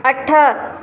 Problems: constant background noise, echo